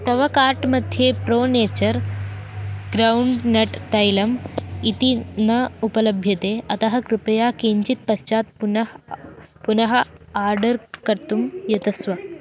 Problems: none marked